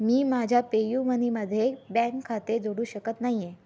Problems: none marked